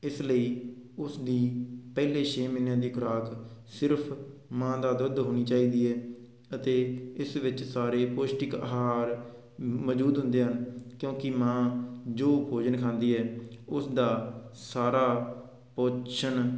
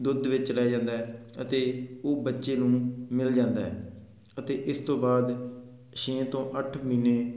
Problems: background sounds at intervals